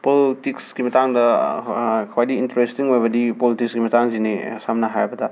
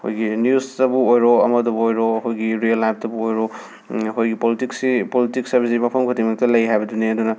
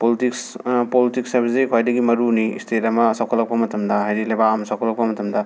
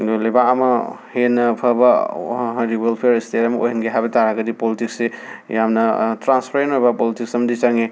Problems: background sounds at intervals